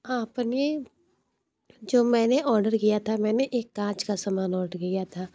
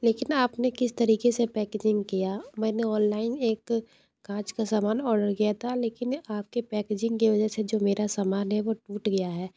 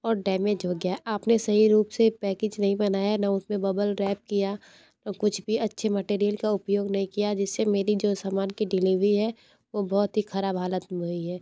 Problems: low volume